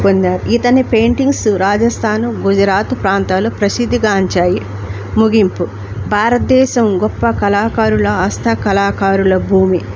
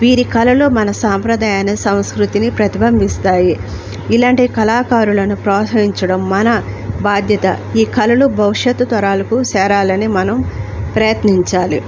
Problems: none marked